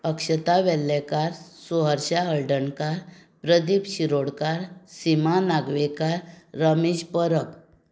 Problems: none marked